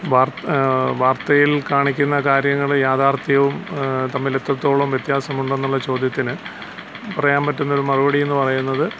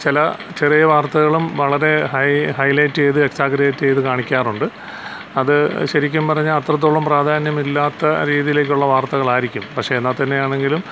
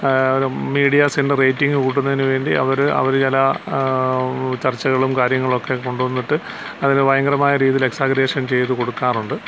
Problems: constant background noise